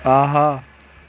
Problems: none marked